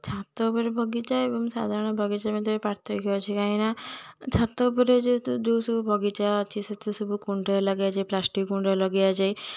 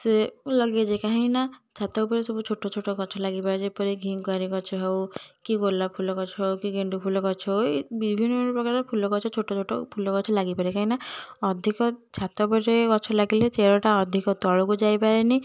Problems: none marked